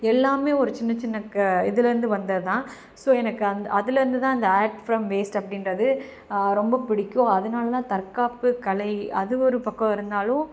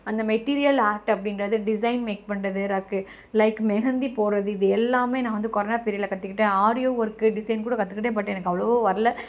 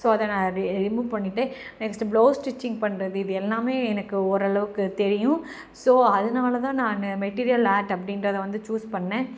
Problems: background sounds at intervals